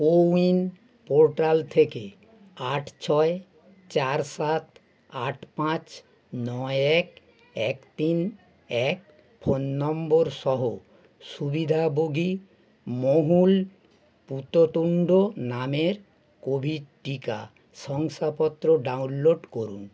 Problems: none marked